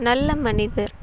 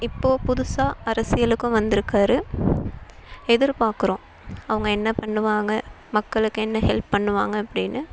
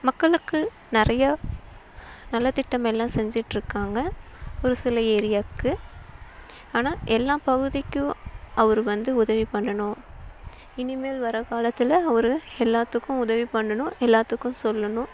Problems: constant background noise